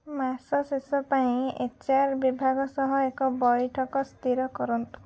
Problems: none marked